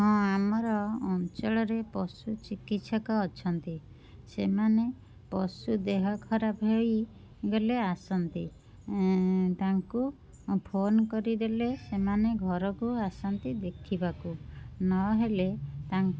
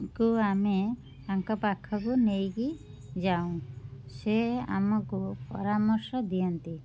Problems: constant background noise